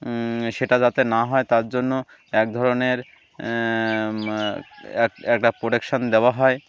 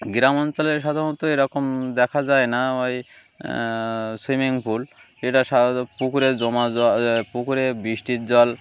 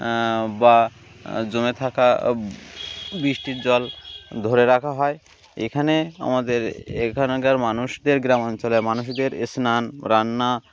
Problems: none marked